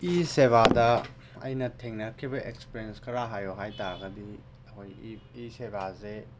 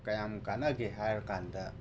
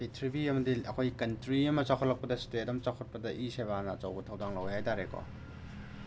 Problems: background sounds at intervals